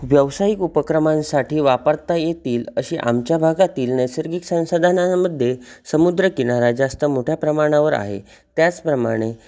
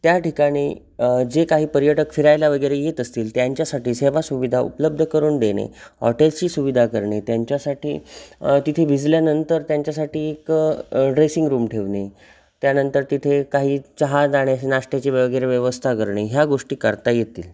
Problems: constant background noise